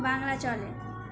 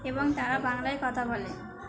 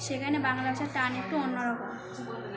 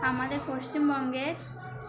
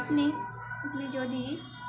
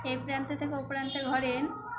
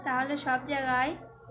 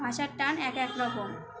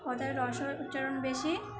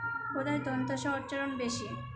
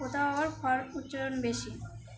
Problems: constant background noise, continuous background conversations